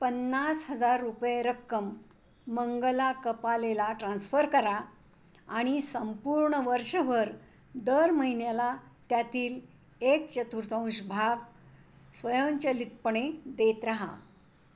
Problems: constant background noise